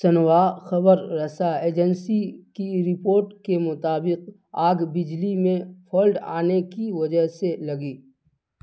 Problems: constant background noise